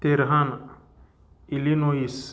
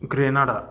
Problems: constant background noise